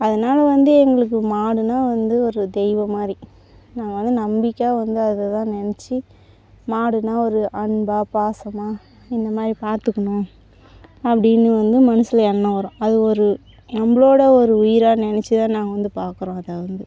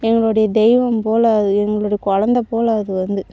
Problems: background sounds at intervals